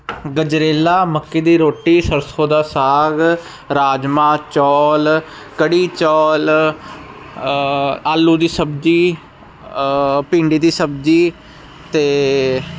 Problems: none marked